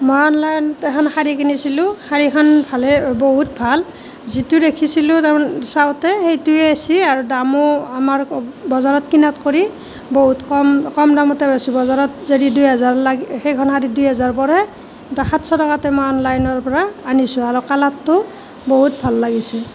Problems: constant background noise